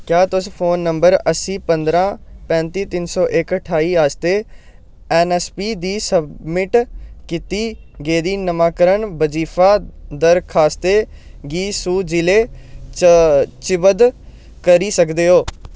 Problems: none marked